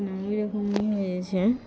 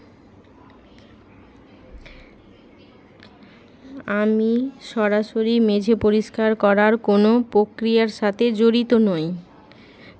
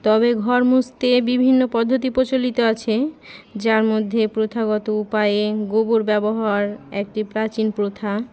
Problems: none marked